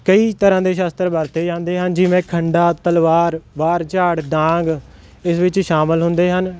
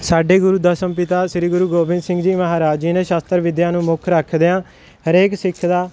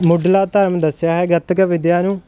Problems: none marked